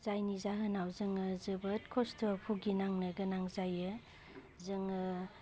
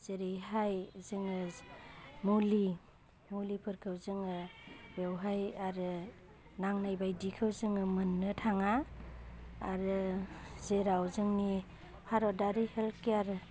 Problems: constant background noise